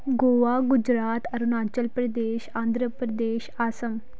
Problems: background sounds at intervals